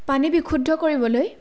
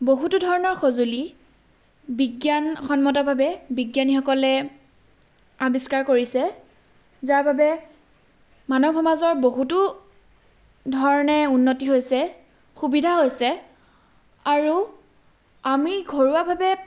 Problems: background sounds at intervals